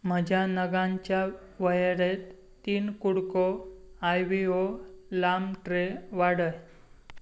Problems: background sounds at intervals